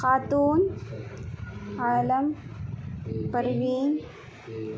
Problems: constant background noise